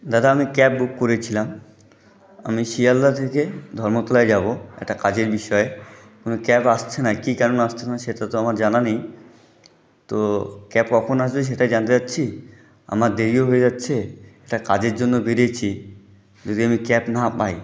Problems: none marked